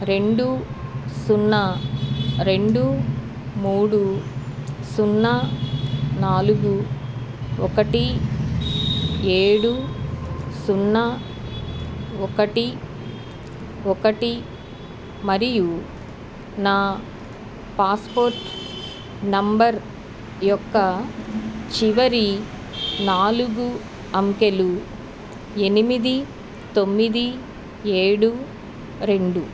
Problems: background sounds at intervals